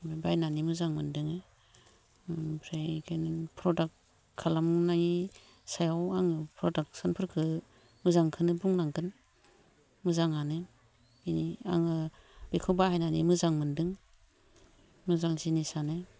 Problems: low volume